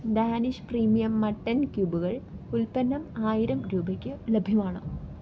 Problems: low volume